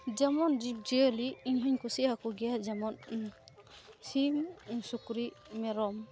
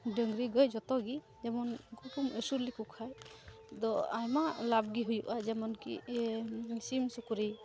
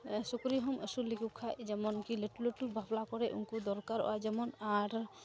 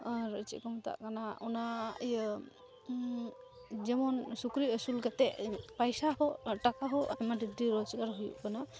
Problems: constant background noise, background conversations at intervals